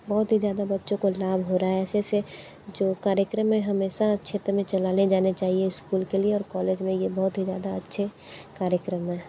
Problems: background sounds at intervals